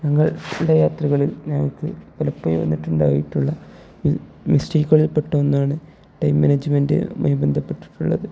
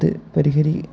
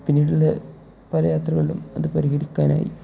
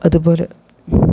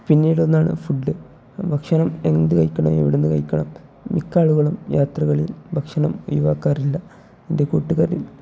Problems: low volume